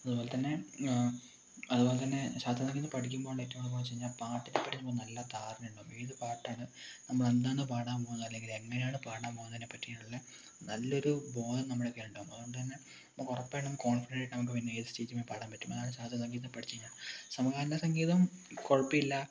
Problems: low volume